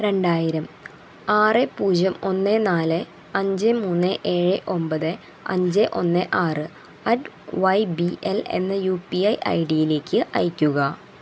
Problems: constant background noise